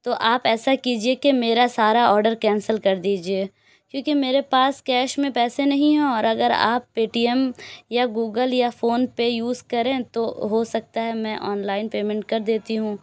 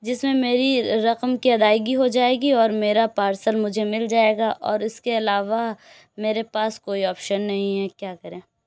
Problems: none marked